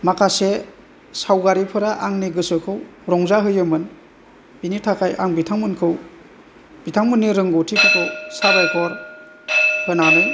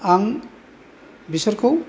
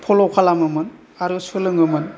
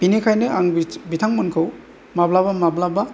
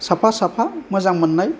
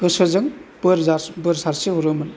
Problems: background sounds at intervals